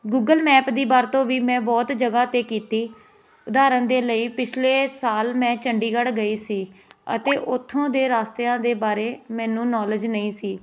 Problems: continuous background conversations